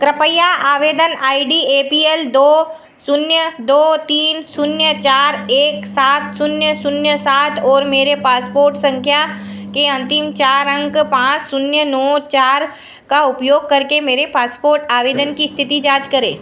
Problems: background sounds at intervals, echo